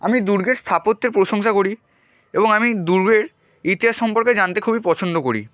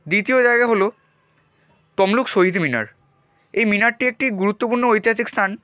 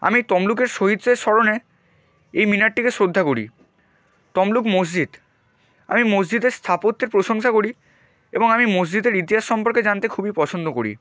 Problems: none marked